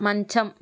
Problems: constant background noise